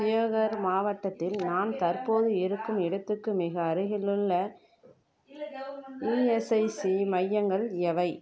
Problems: background conversations at intervals